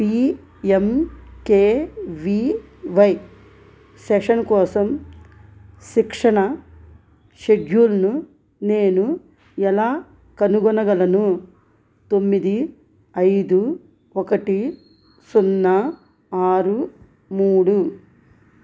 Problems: none marked